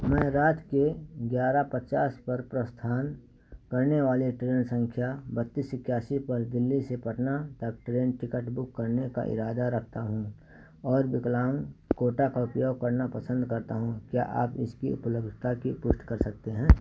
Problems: constant background noise